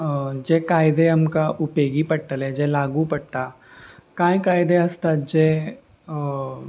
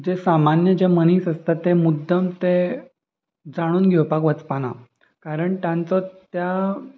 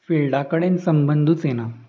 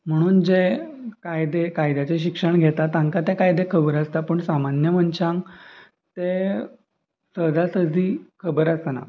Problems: constant background noise, continuous background conversations